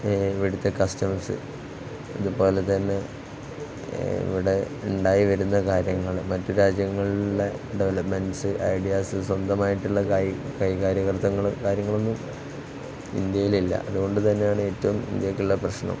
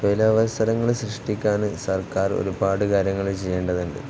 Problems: constant background noise, low volume